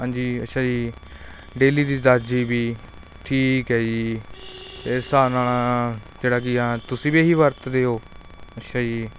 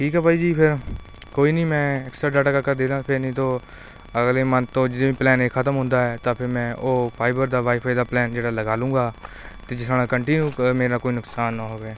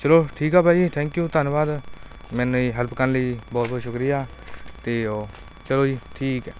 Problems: constant background noise